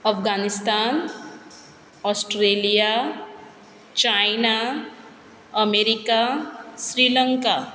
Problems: background sounds at intervals